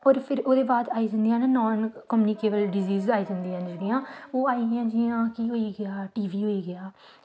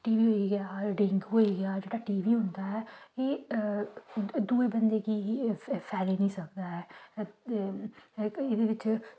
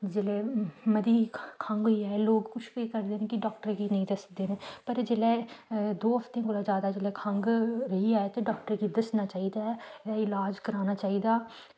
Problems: constant background noise